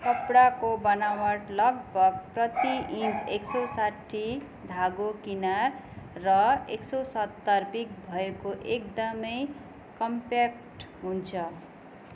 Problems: none marked